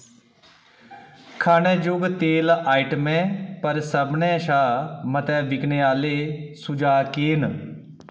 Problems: none marked